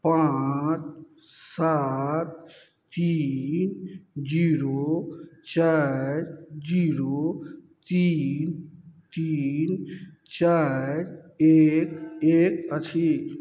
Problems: none marked